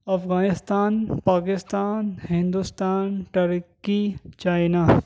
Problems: background sounds at intervals